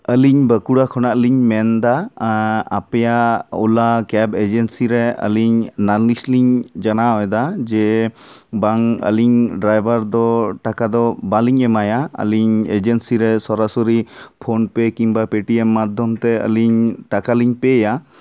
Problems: none marked